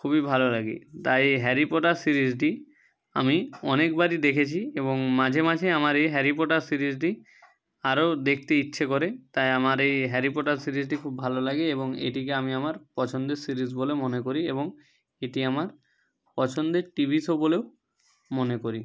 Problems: none marked